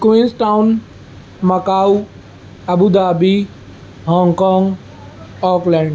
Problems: none marked